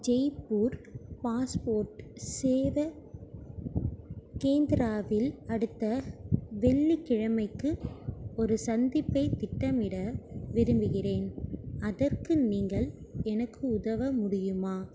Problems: low volume